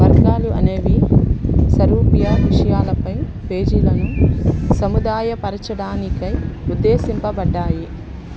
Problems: constant background noise, background conversations at intervals